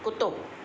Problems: constant background noise, low volume